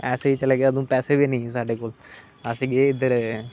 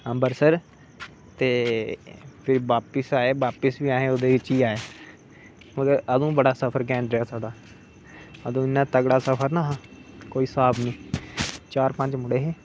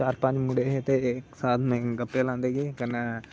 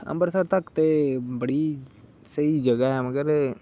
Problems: constant background noise